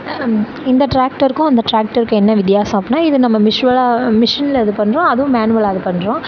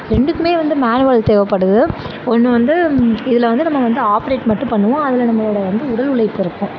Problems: constant background noise, background conversations at intervals